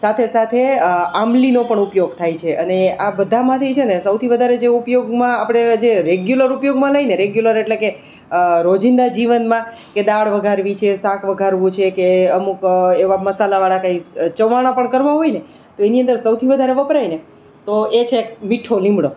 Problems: none marked